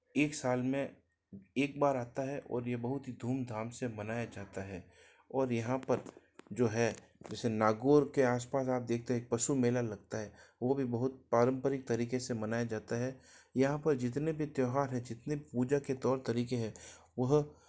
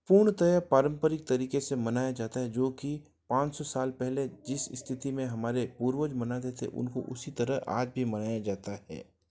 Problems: none marked